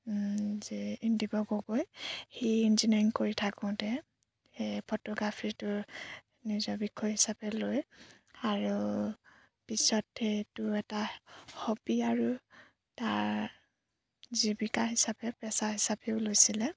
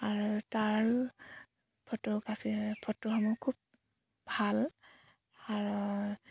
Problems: background sounds at intervals